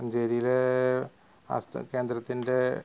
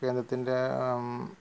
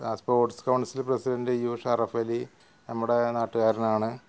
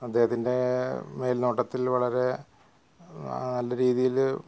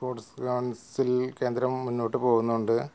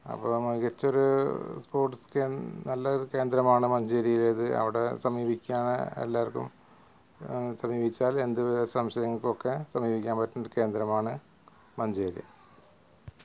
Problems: background sounds at intervals